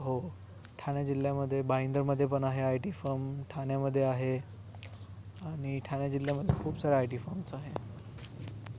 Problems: background sounds at intervals